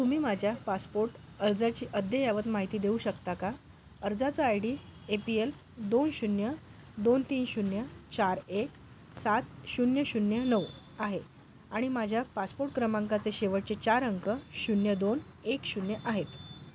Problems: none marked